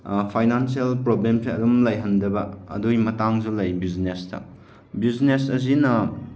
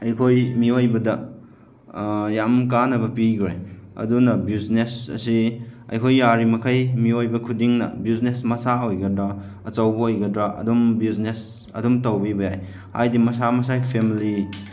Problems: none marked